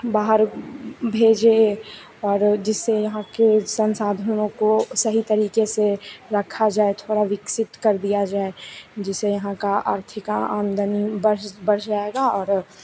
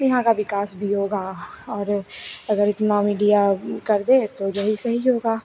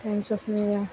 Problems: constant background noise, continuous background conversations